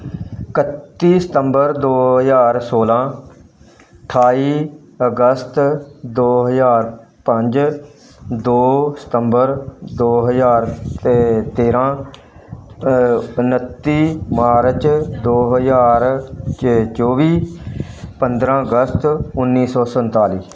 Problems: background sounds at intervals